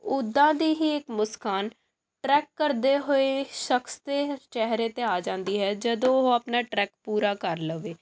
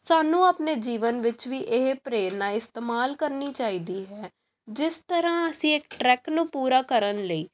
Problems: background sounds at intervals